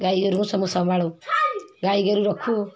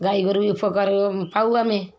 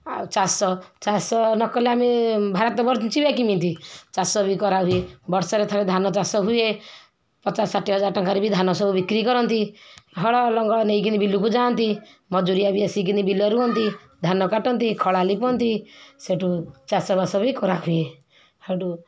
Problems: background sounds at intervals